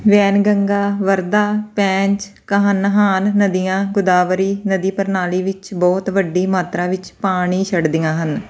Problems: background sounds at intervals